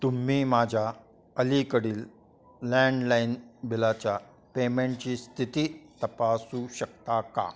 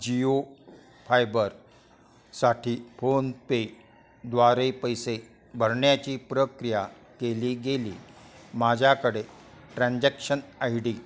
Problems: constant background noise, continuous background conversations